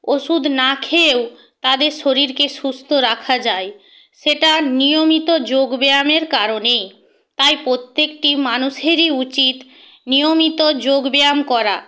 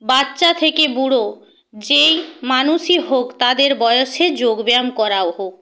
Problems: background sounds at intervals